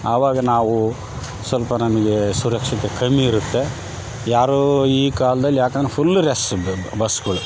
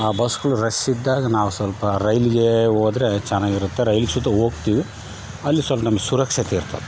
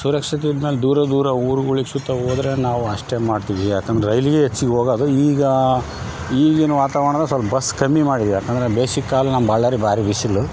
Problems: background sounds at intervals